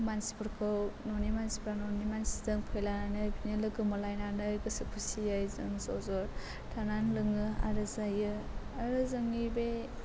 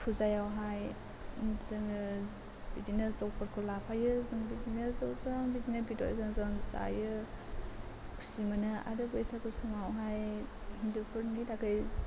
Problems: constant background noise